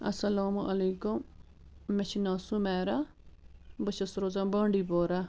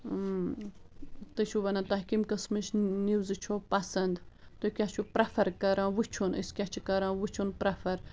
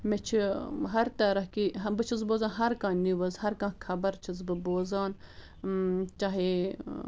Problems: constant background noise